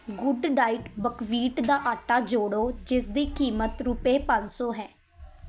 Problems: continuous background conversations